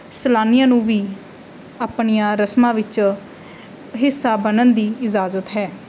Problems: none marked